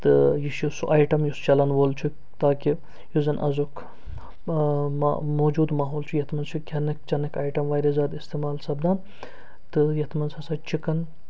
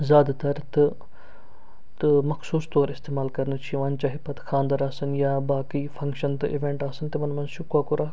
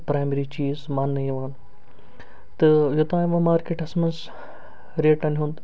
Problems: none marked